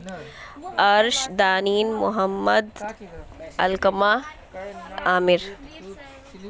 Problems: constant background noise